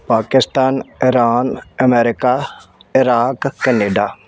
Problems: background sounds at intervals